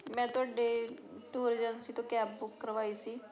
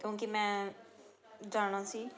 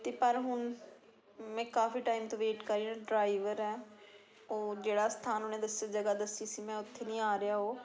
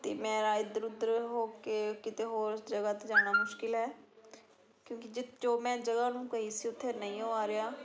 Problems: continuous background conversations